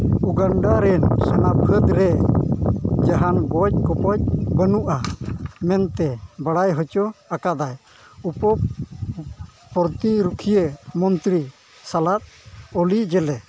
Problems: constant background noise